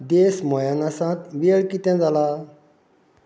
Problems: none marked